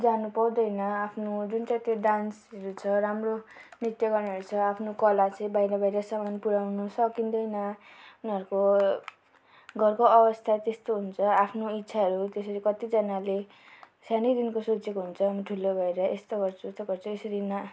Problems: background conversations at intervals